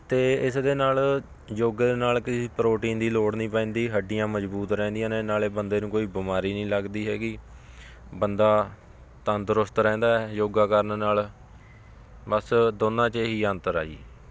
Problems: constant background noise